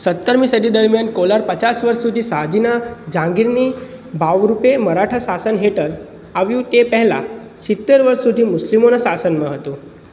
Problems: none marked